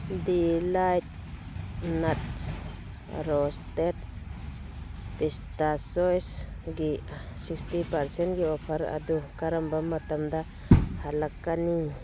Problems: constant background noise, low volume